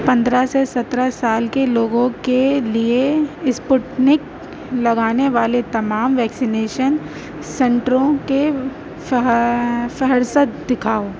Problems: constant background noise